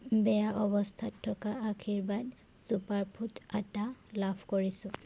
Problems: constant background noise